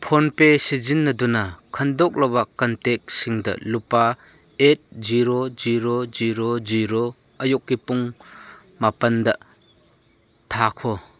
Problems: none marked